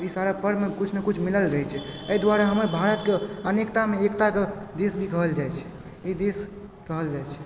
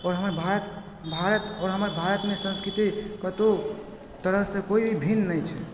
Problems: constant background noise